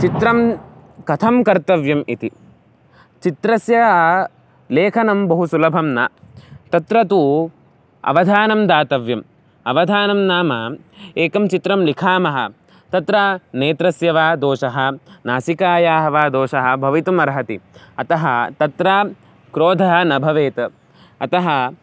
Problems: none marked